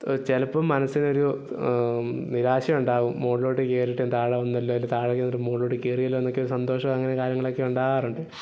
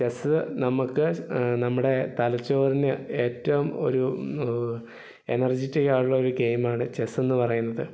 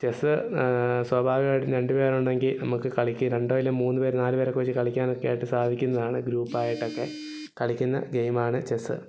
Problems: background sounds at intervals